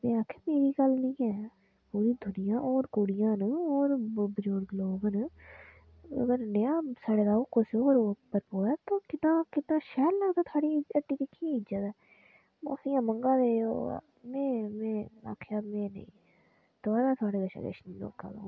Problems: none marked